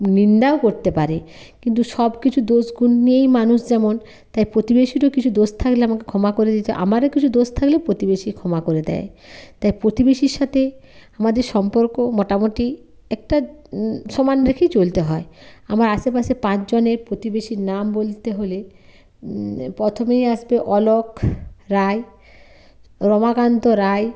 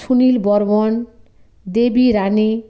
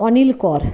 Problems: none marked